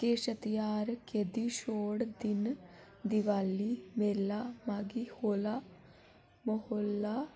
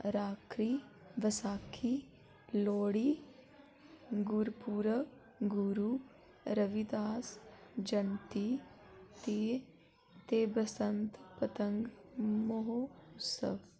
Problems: low volume